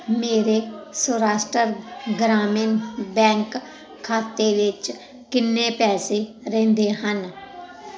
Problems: constant background noise